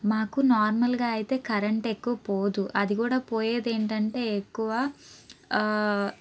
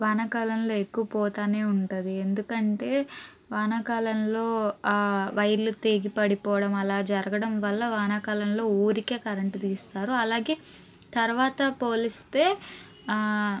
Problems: background conversations at intervals